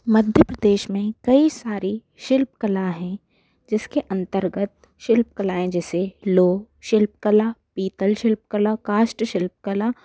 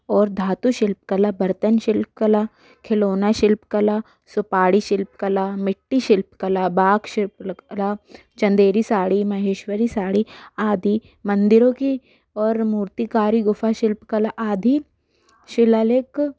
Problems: background sounds at intervals